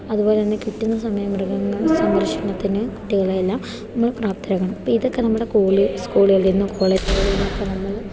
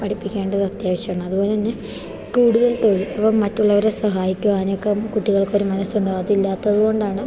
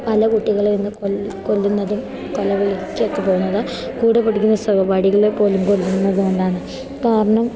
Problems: none marked